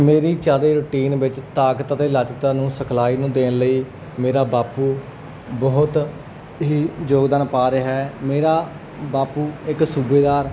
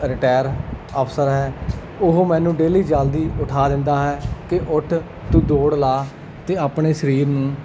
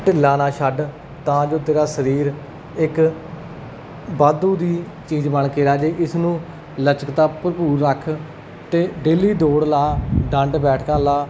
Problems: background sounds at intervals